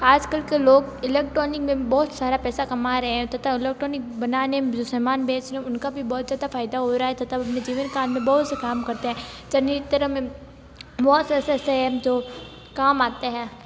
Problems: constant background noise